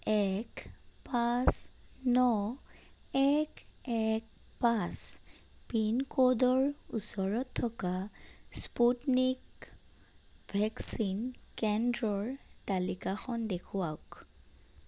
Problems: none marked